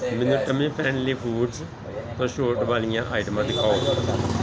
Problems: constant background noise, continuous background conversations